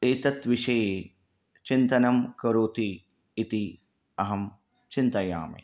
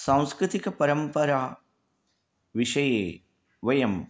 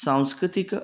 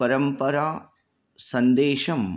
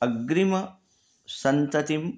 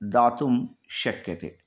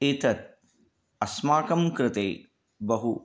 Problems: none marked